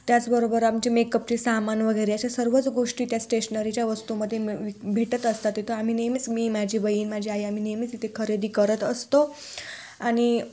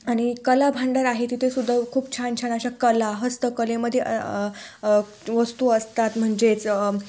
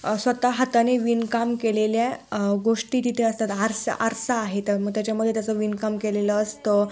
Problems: none marked